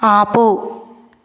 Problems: constant background noise